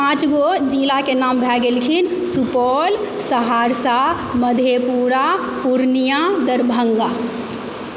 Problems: constant background noise